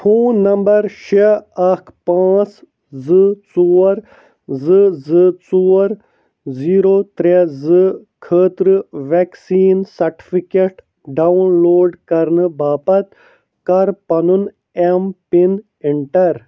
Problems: none marked